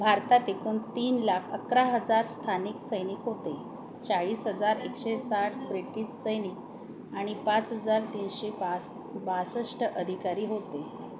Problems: constant background noise, continuous background conversations